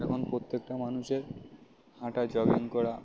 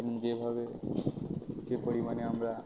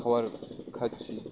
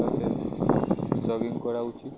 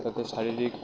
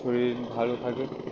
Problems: constant background noise, background conversations at intervals